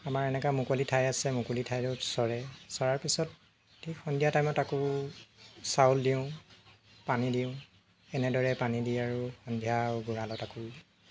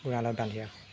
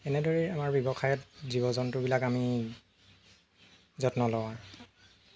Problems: none marked